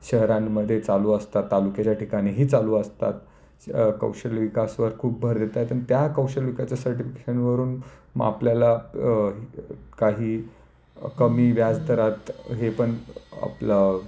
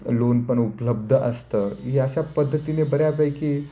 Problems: none marked